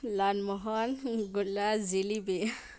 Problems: none marked